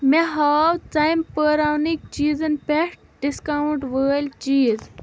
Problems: none marked